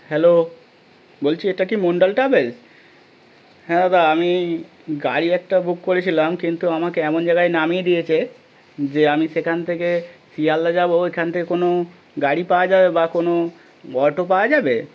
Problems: none marked